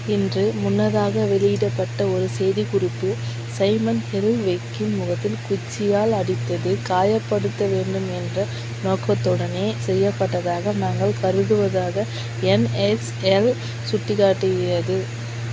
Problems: constant background noise